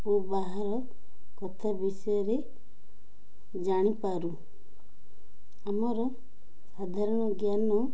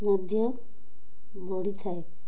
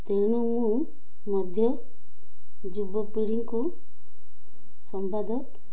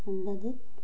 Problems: none marked